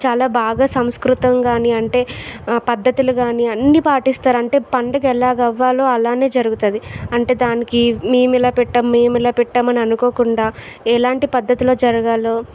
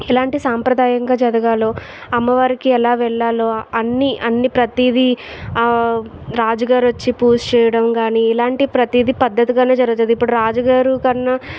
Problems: none marked